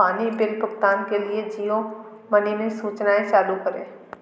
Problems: continuous background conversations